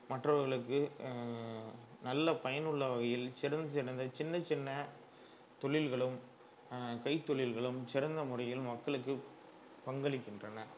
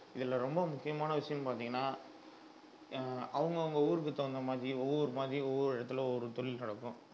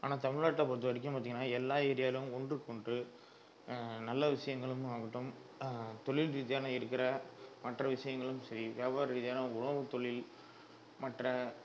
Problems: low volume